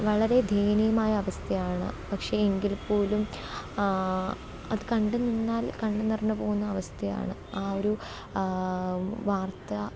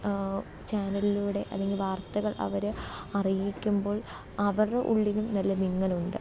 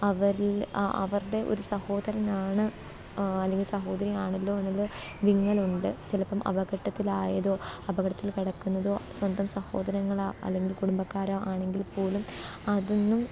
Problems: background sounds at intervals, low volume